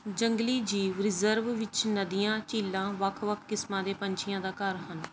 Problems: background sounds at intervals